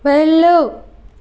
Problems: none marked